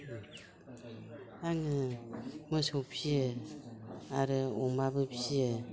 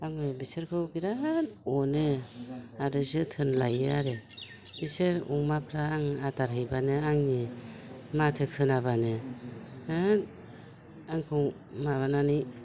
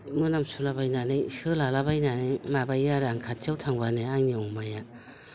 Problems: none marked